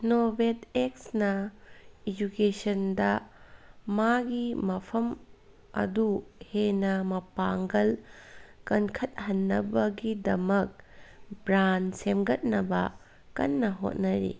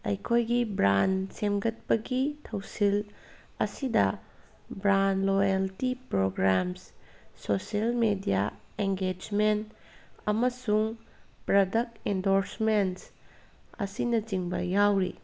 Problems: background sounds at intervals